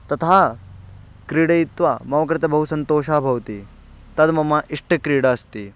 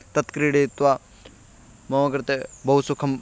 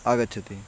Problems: none marked